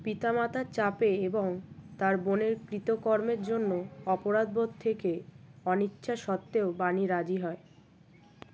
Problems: constant background noise